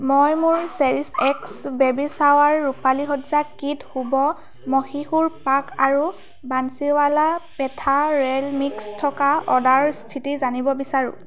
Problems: background sounds at intervals